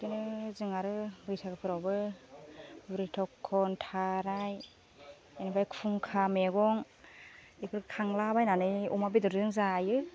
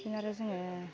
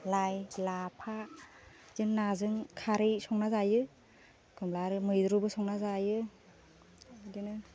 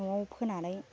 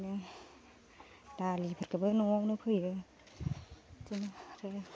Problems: low volume